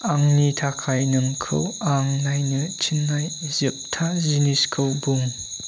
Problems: constant background noise